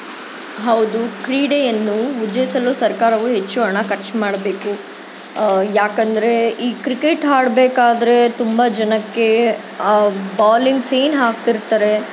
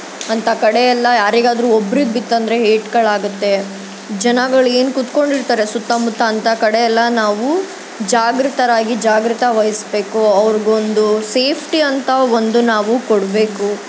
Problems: constant background noise